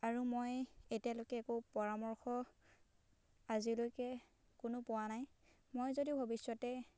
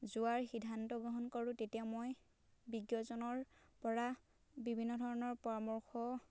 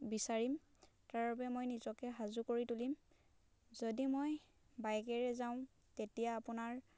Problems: none marked